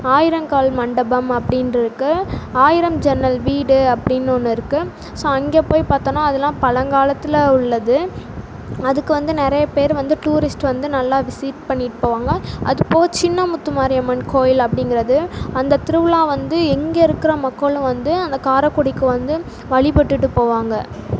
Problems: constant background noise